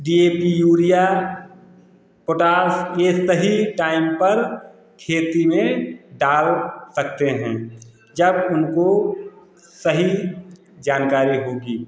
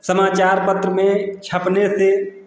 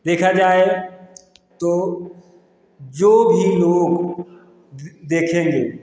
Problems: constant background noise